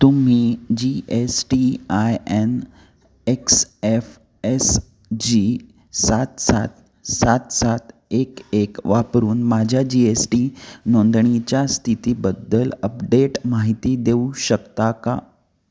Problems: constant background noise